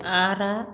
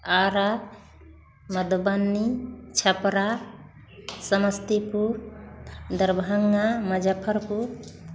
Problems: constant background noise, continuous background conversations